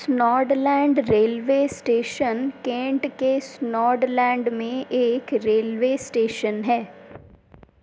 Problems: constant background noise